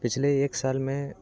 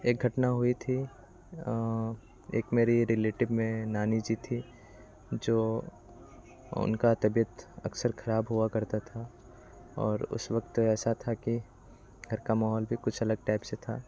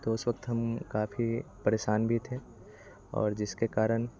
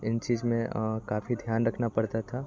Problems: constant background noise, background conversations at intervals